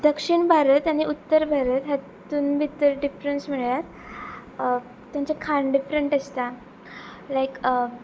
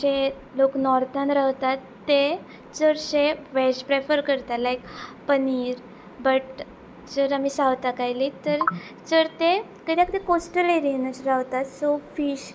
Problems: background sounds at intervals